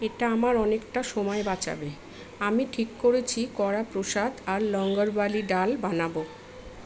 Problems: constant background noise, background conversations at intervals